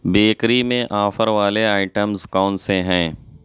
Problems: none marked